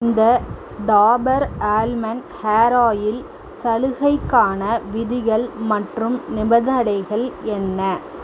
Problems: none marked